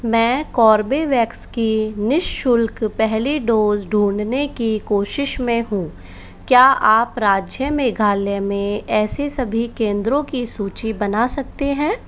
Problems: constant background noise